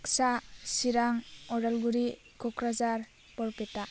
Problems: none marked